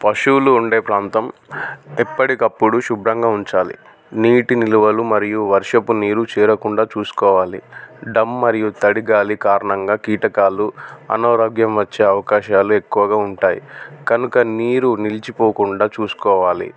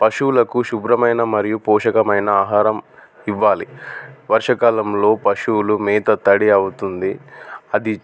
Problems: none marked